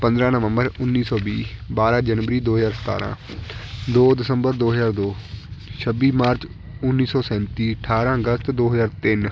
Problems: none marked